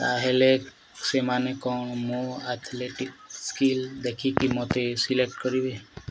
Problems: background sounds at intervals